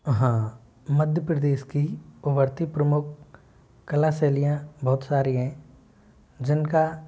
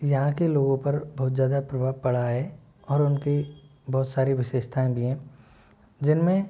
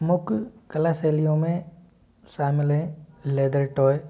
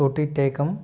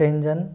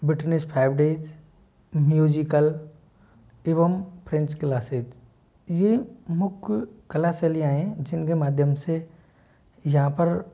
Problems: background sounds at intervals